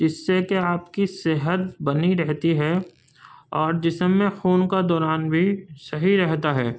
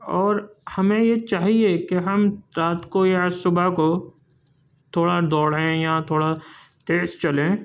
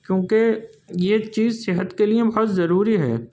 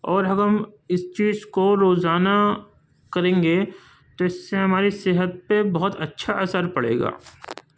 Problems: none marked